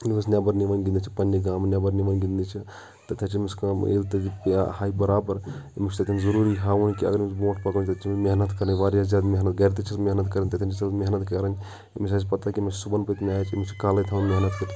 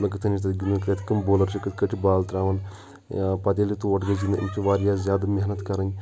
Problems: background sounds at intervals, continuous background conversations